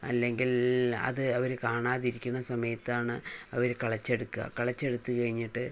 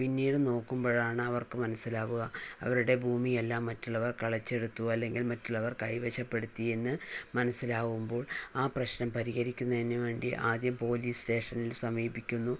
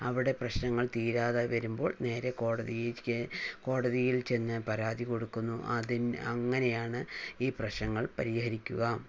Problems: low volume